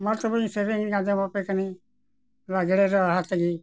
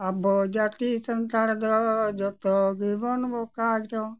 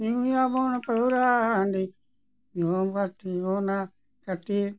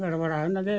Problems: none marked